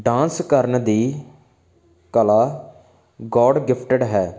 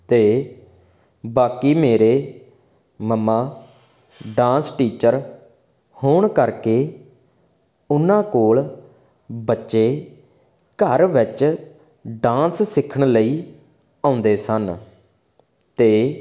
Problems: background sounds at intervals